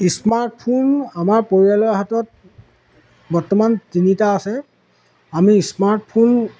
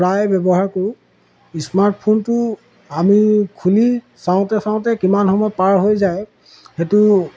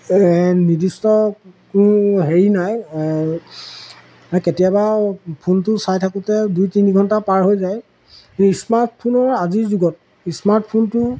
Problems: background sounds at intervals